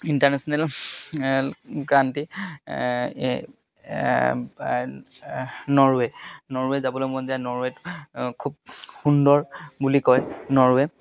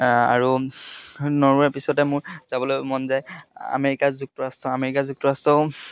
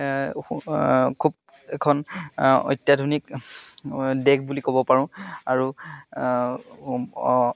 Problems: none marked